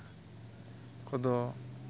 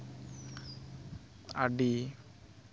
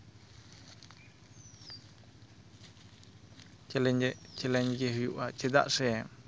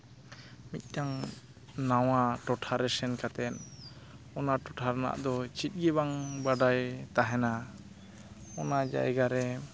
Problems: constant background noise